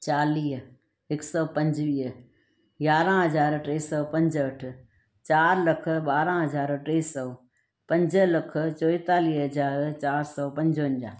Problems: none marked